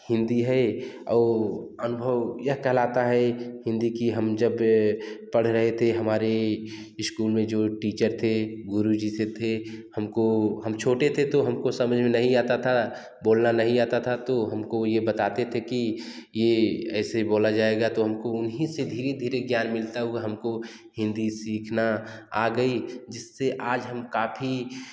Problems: background sounds at intervals